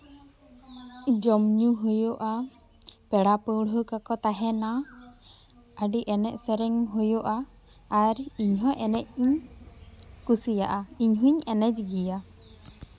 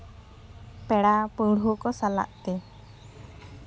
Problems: background sounds at intervals